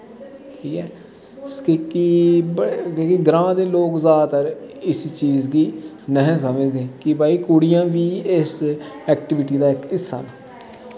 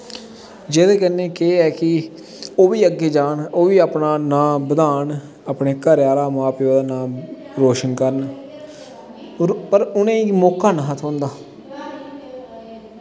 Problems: constant background noise, background conversations at intervals, echo